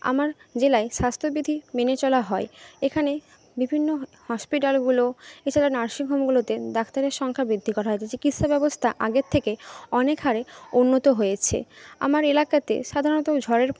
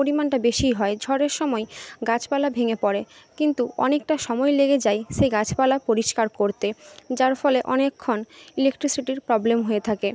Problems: background conversations at intervals